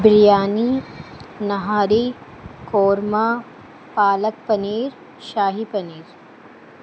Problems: constant background noise